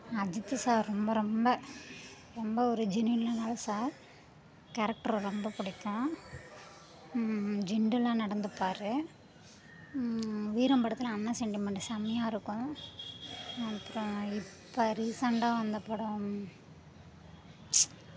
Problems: continuous background conversations